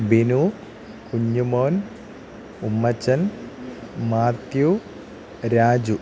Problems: none marked